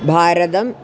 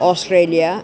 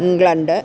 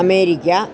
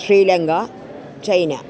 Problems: none marked